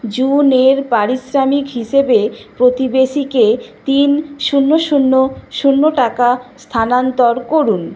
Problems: constant background noise